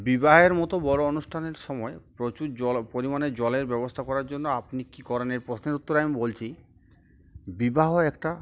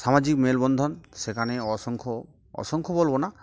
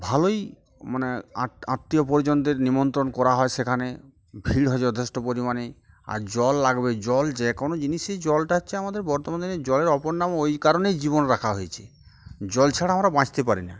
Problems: none marked